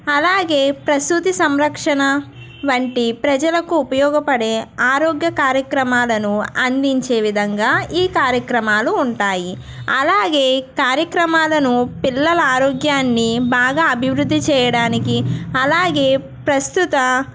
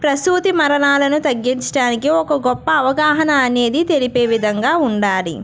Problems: background sounds at intervals